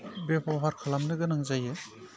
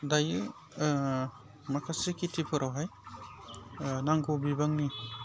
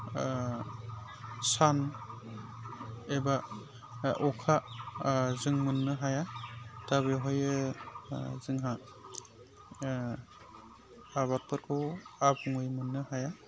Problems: constant background noise